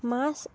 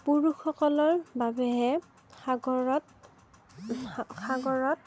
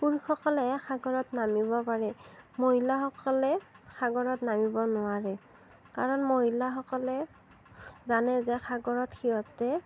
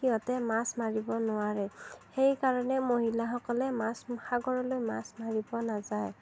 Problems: none marked